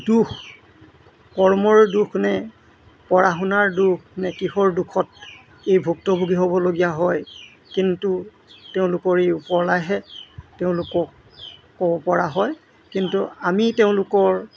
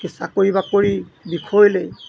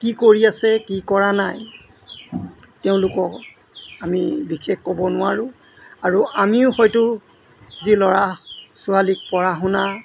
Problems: constant background noise